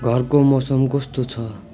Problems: constant background noise